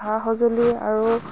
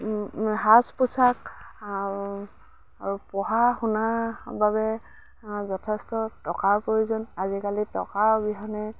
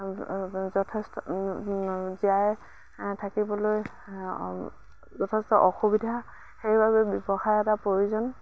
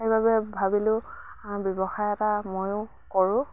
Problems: none marked